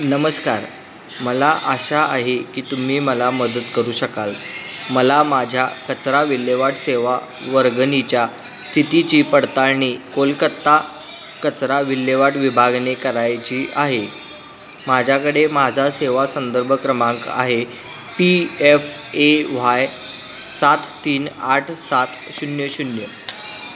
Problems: constant background noise, continuous background conversations